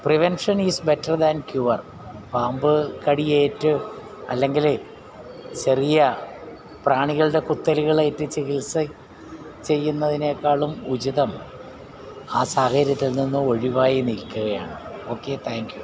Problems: background sounds at intervals